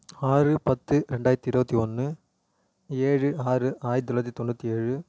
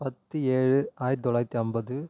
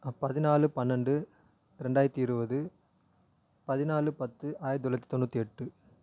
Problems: none marked